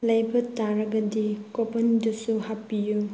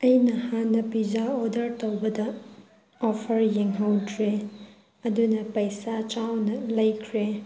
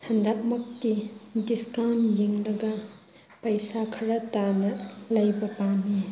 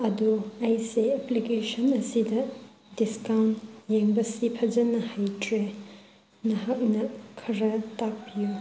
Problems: none marked